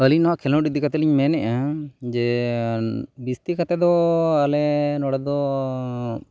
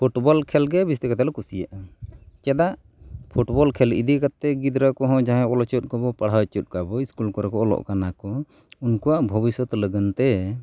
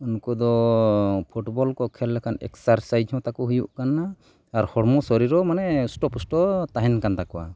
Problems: none marked